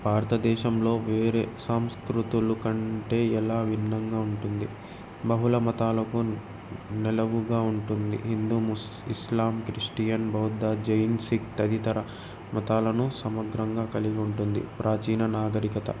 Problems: none marked